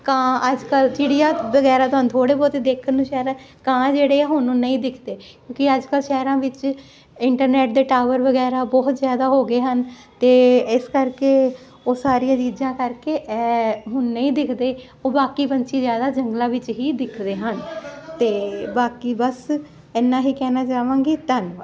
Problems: continuous background conversations